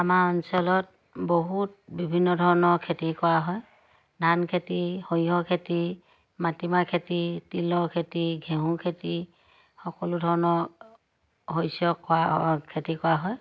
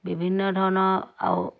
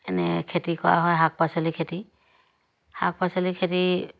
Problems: none marked